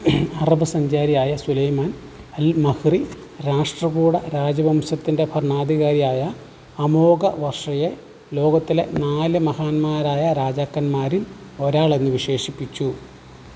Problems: constant background noise